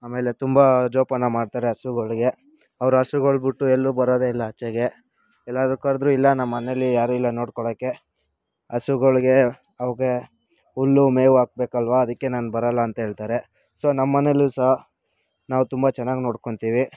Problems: none marked